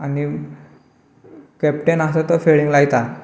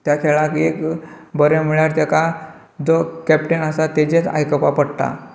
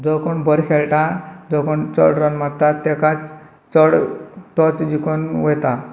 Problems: low volume